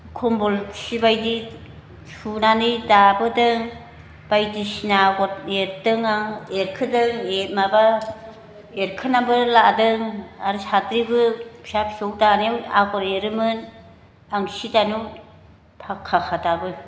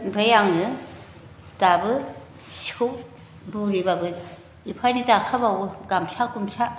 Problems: constant background noise